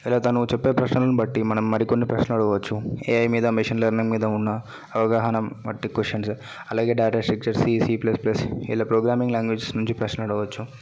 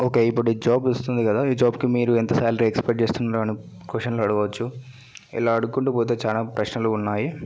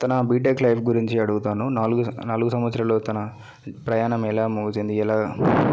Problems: background conversations at intervals